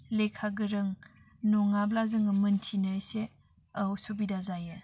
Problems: constant background noise